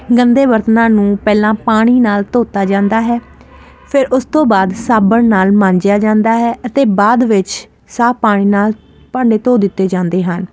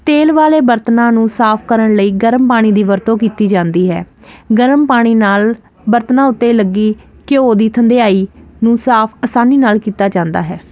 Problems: constant background noise